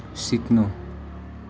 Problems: background sounds at intervals